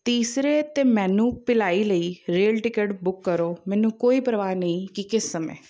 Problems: background sounds at intervals